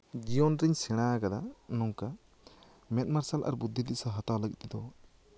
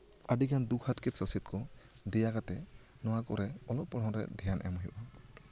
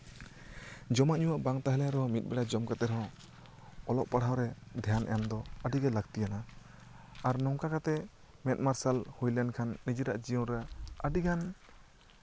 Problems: background conversations at intervals